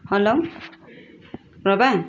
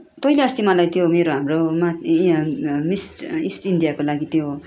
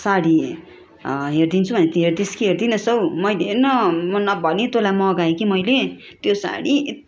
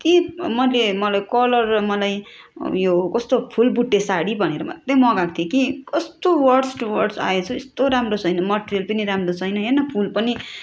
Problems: constant background noise, background conversations at intervals